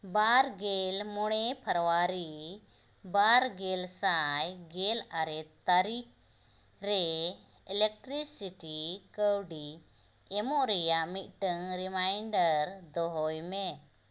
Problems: constant background noise